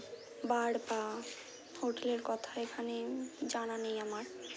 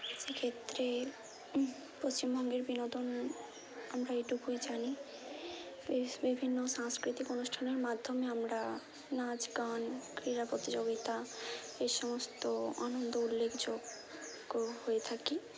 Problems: none marked